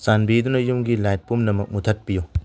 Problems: none marked